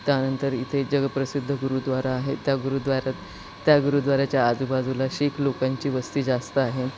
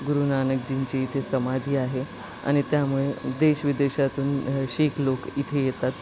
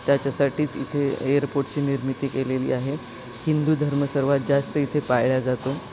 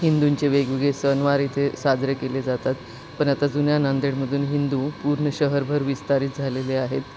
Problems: constant background noise, background conversations at intervals